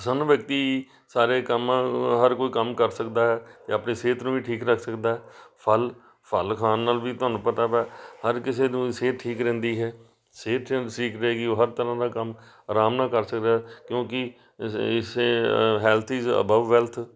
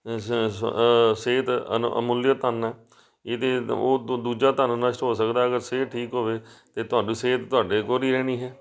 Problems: background sounds at intervals, background conversations at intervals